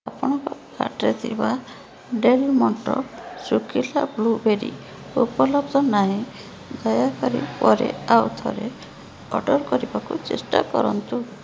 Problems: constant background noise